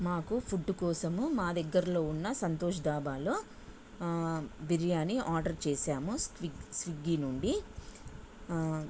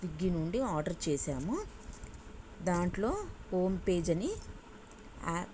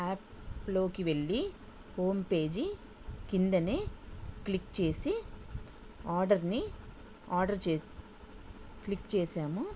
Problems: none marked